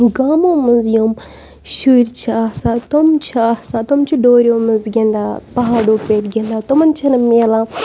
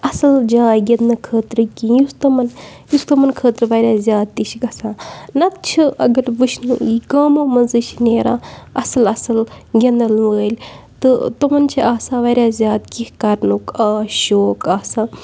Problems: none marked